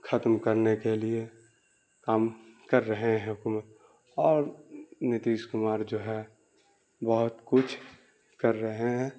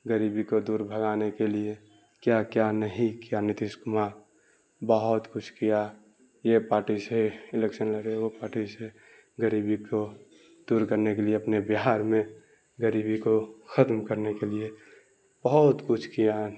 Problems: constant background noise